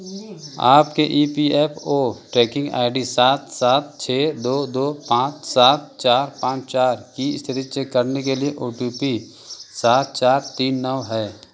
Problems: none marked